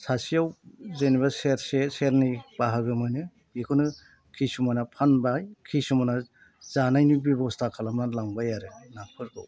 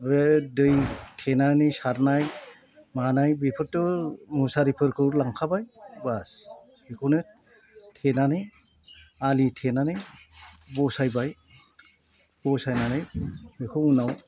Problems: none marked